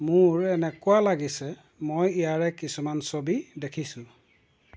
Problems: none marked